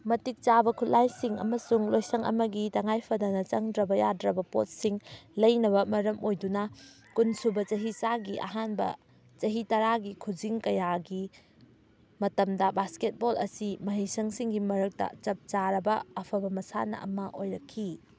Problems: background sounds at intervals